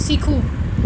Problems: constant background noise